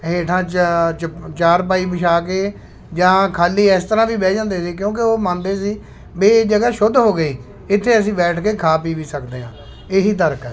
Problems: constant background noise